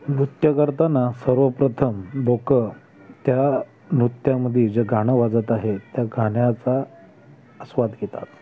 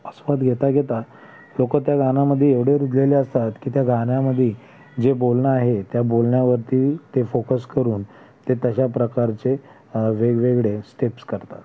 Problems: constant background noise, background conversations at intervals